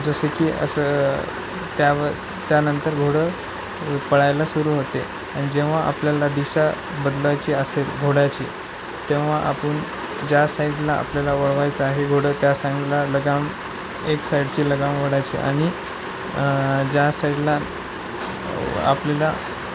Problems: none marked